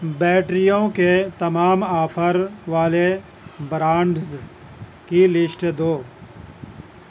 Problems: constant background noise